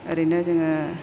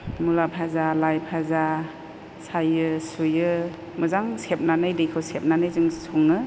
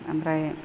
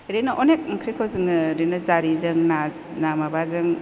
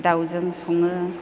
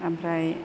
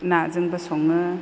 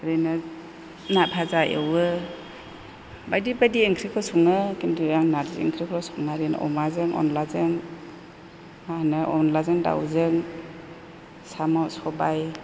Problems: none marked